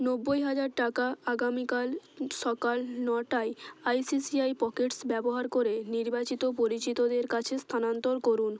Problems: constant background noise